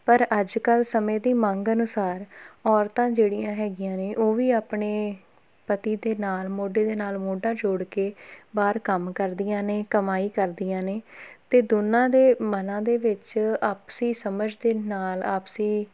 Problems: none marked